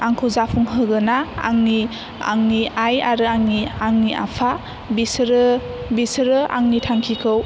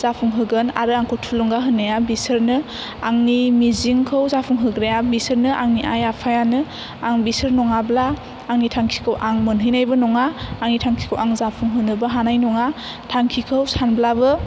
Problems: none marked